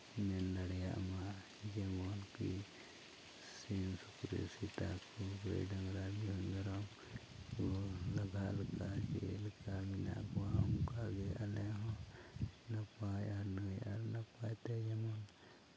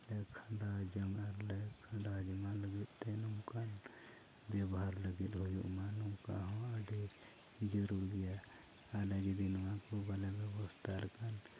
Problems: low volume